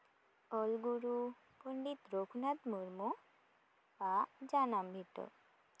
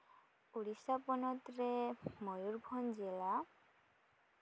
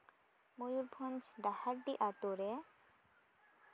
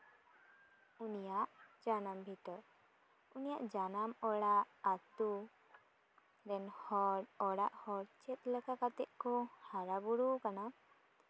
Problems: none marked